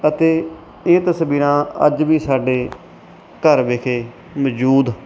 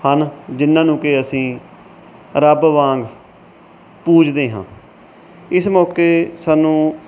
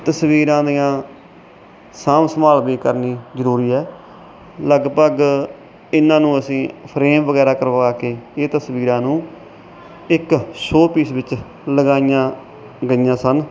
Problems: none marked